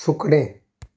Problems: none marked